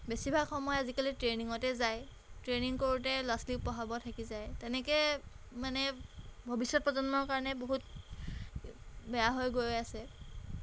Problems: background sounds at intervals